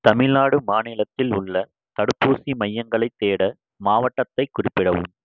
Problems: none marked